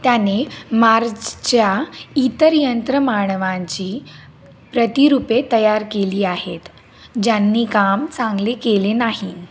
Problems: constant background noise